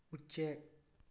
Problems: low volume